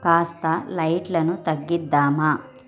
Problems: background sounds at intervals, continuous background conversations